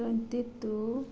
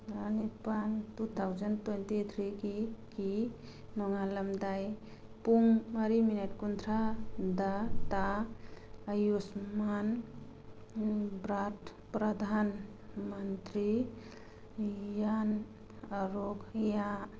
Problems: background sounds at intervals, background conversations at intervals